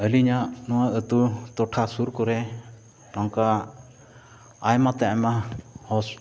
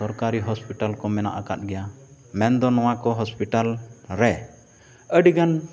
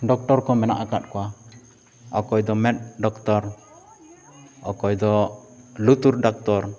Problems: background sounds at intervals, background conversations at intervals